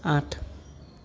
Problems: none marked